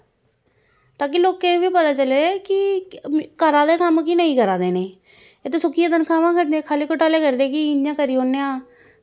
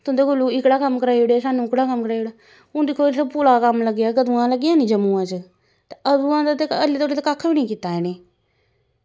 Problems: constant background noise